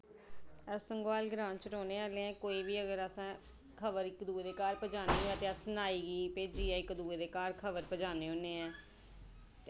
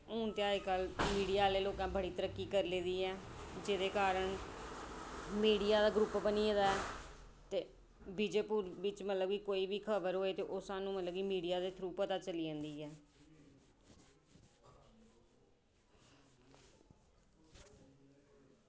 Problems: background sounds at intervals